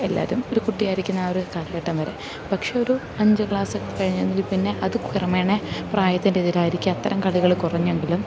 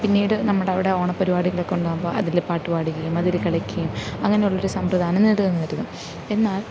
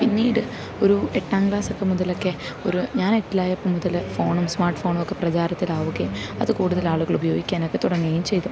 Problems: constant background noise, low volume